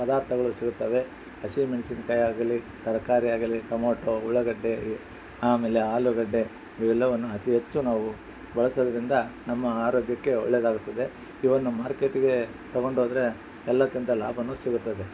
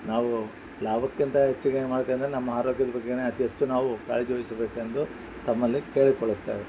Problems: background sounds at intervals